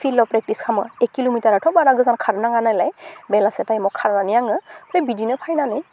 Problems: constant background noise